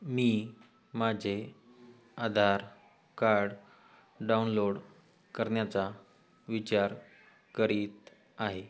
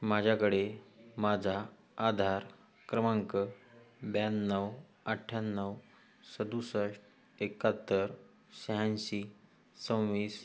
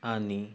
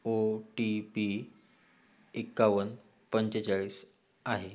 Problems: background sounds at intervals